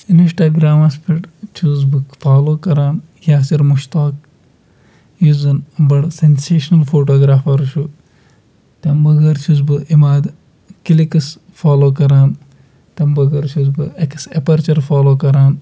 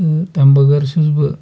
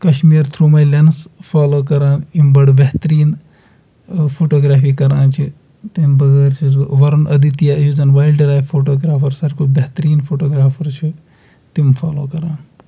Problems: background sounds at intervals